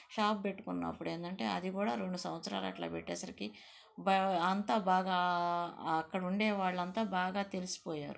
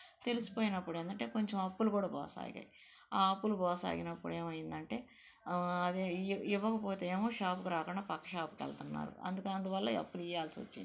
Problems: background sounds at intervals